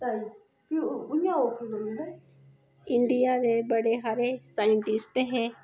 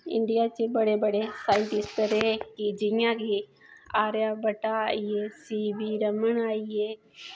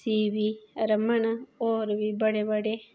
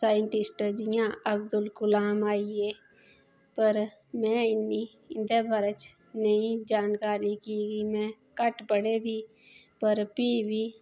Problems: background sounds at intervals